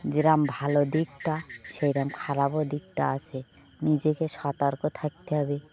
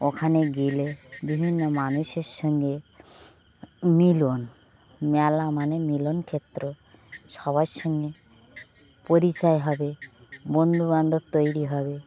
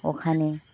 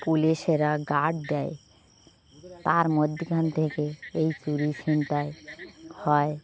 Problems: background sounds at intervals